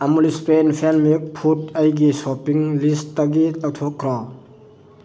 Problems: constant background noise